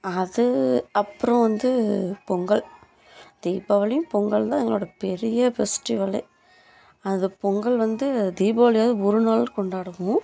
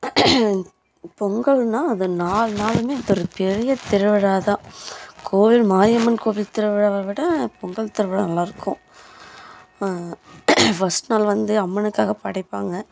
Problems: background sounds at intervals